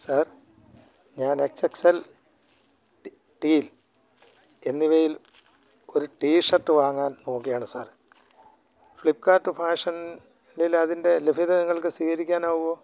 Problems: low volume